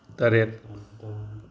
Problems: background sounds at intervals